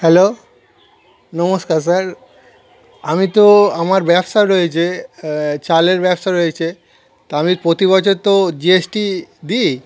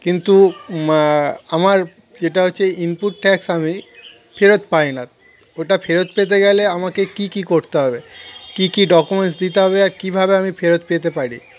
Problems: constant background noise, continuous background conversations